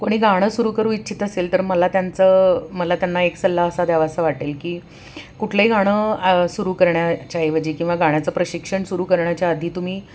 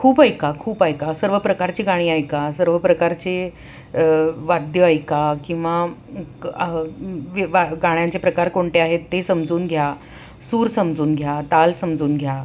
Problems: constant background noise